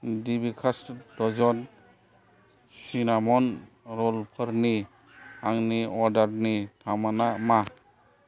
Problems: low volume